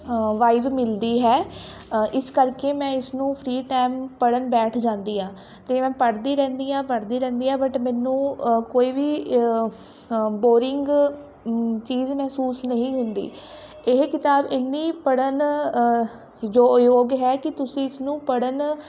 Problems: none marked